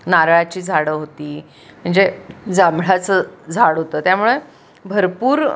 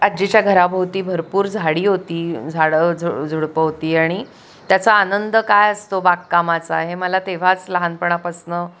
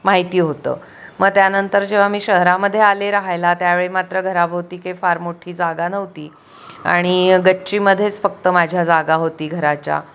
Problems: none marked